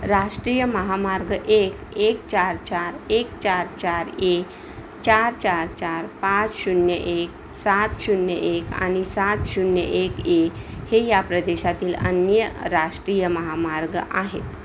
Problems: constant background noise